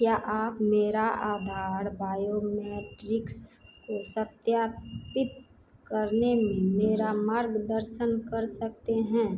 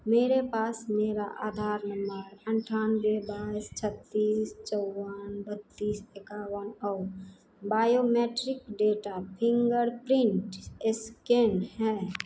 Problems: none marked